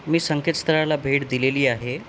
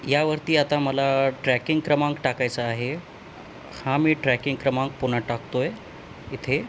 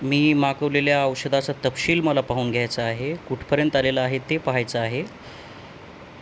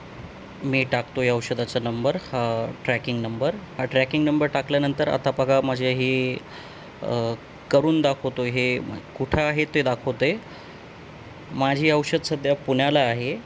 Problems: none marked